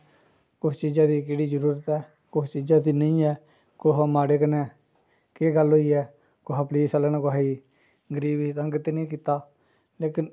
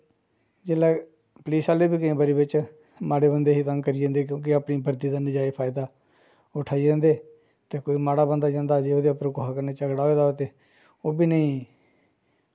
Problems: low volume